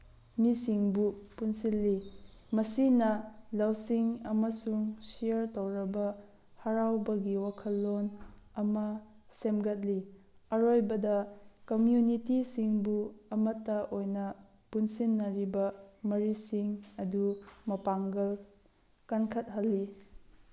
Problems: none marked